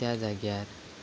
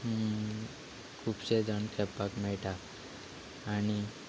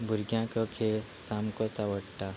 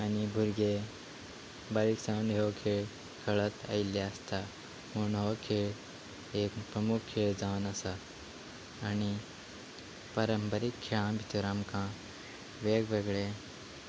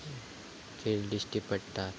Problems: none marked